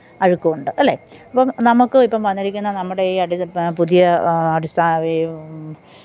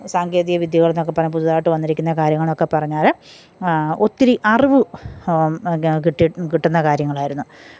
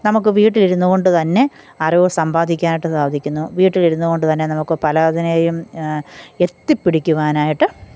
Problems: none marked